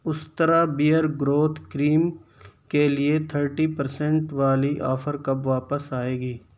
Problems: constant background noise, low volume